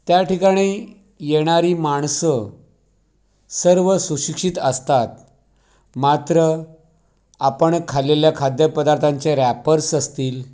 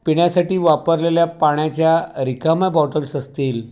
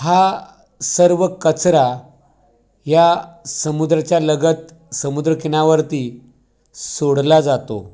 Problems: background sounds at intervals, background conversations at intervals